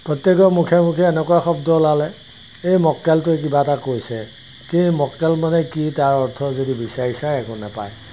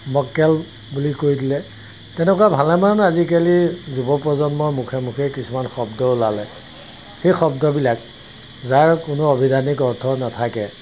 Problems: constant background noise